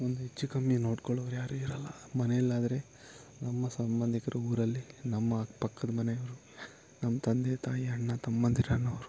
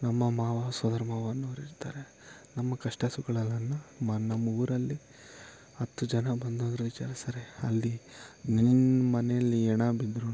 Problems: low volume